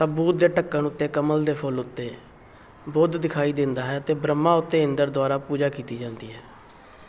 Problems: constant background noise